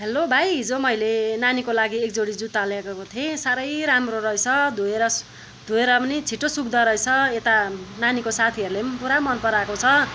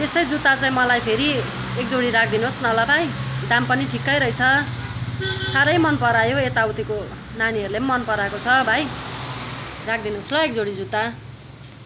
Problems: continuous background conversations